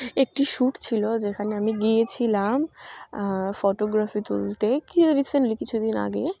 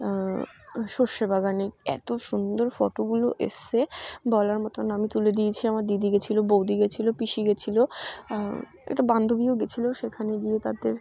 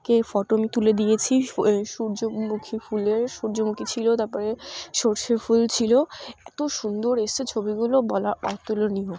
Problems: none marked